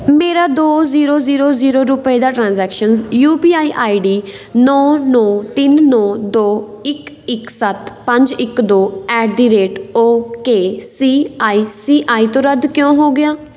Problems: none marked